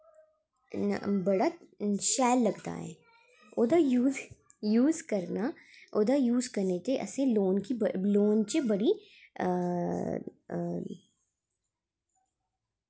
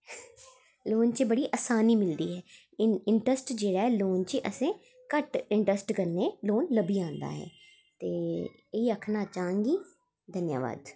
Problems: background sounds at intervals